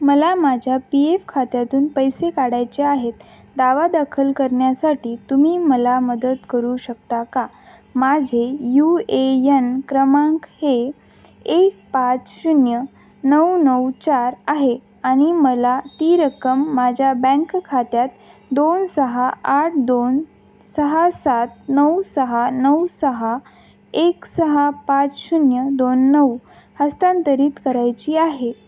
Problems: background sounds at intervals